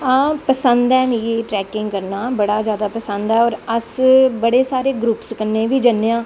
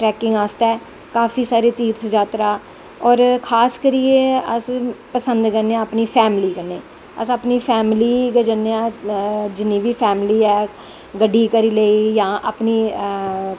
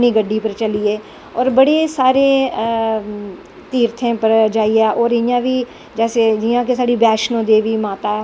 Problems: constant background noise